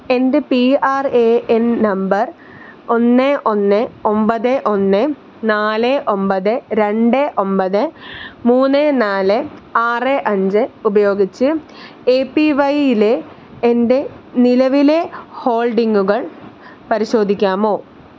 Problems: constant background noise